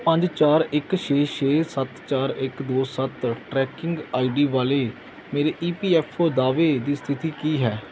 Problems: background sounds at intervals